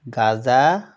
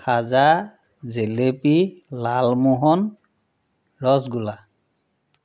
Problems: constant background noise